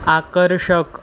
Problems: constant background noise